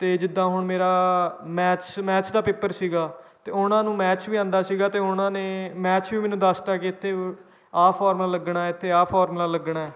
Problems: background sounds at intervals